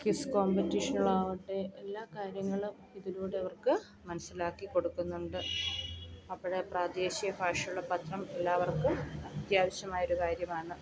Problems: background sounds at intervals, low volume